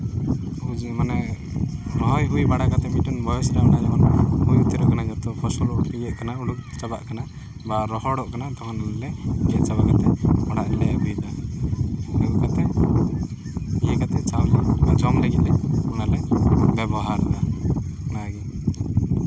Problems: constant background noise